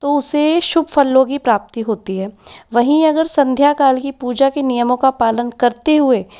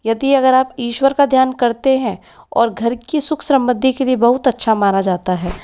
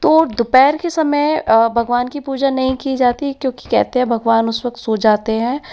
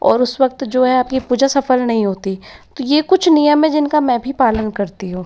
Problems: none marked